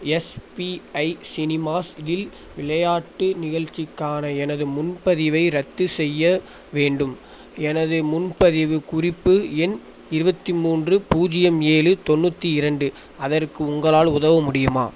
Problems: constant background noise